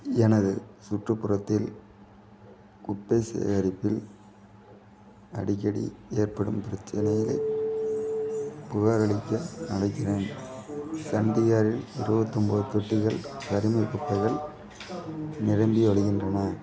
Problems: continuous background conversations